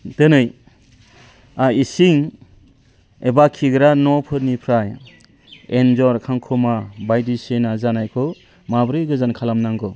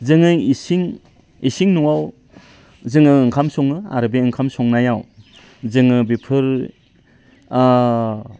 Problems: low volume